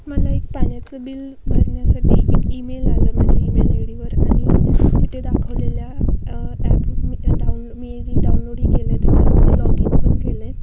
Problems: constant background noise